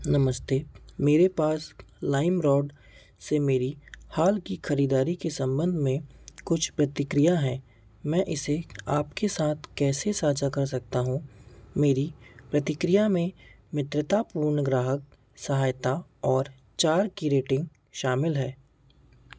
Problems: constant background noise